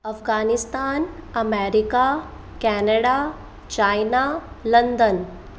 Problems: constant background noise, echo